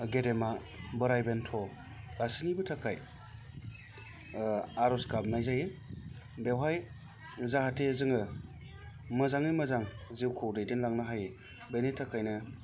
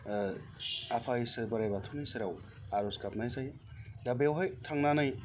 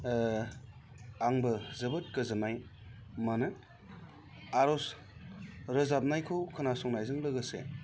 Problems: none marked